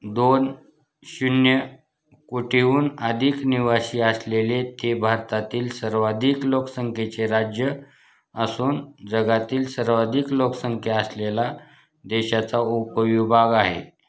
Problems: constant background noise